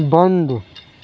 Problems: none marked